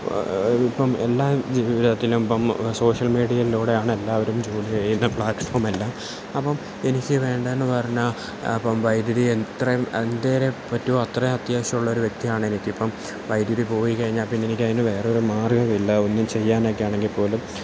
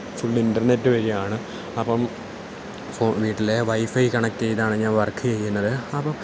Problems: constant background noise, low volume